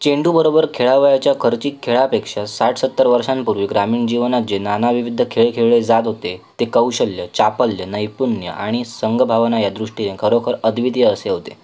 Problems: constant background noise